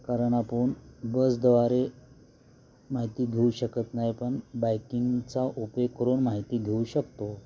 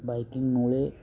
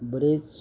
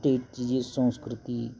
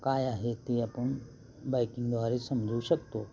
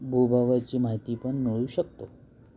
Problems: constant background noise, continuous background conversations